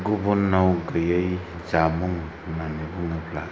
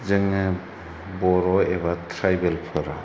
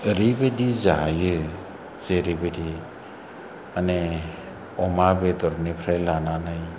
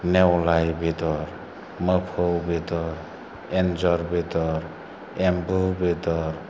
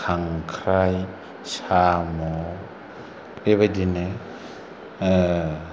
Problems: low volume